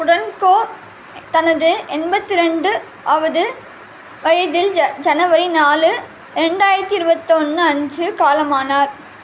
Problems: constant background noise